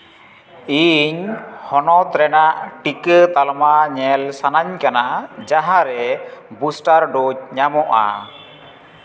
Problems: constant background noise